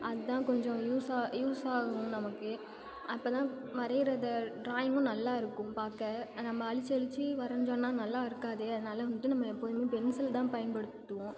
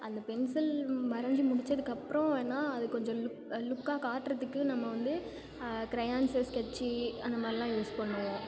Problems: background sounds at intervals